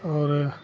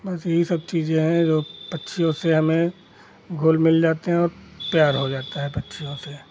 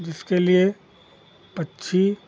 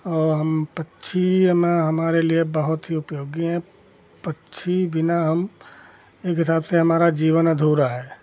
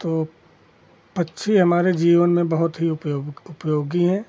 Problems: constant background noise